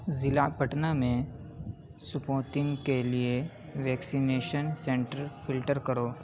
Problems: constant background noise